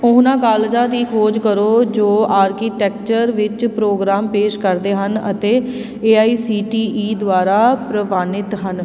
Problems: constant background noise